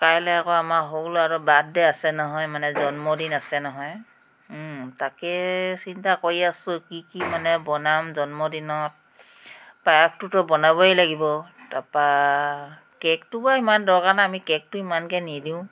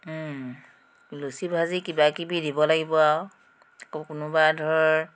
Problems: constant background noise